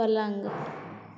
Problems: low volume